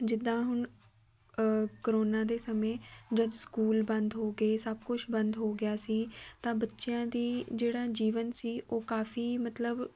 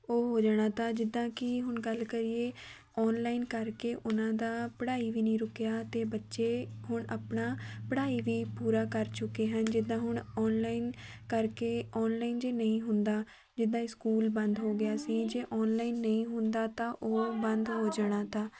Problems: none marked